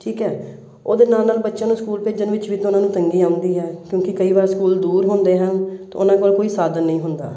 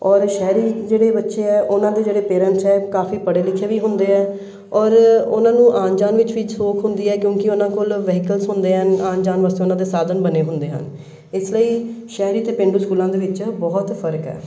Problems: none marked